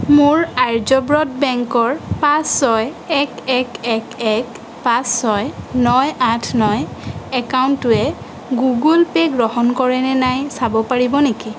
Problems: constant background noise